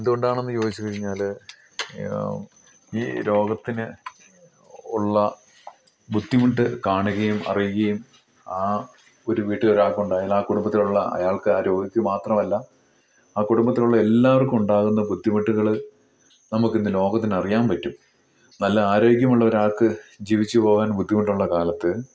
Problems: none marked